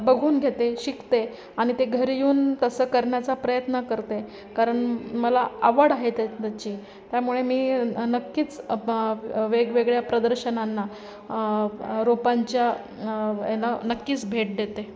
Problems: constant background noise, continuous background conversations